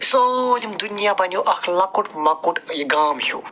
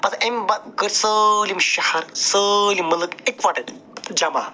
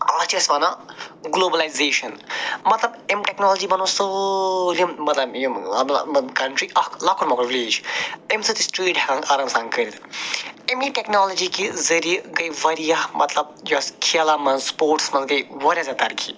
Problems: none marked